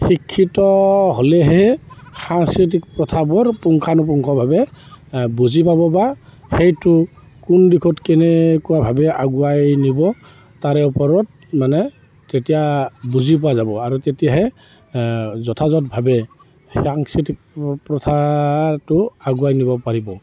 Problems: constant background noise